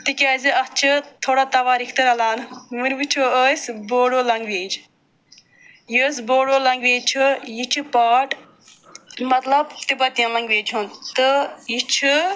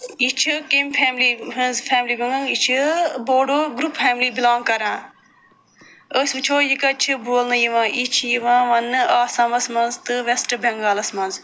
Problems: none marked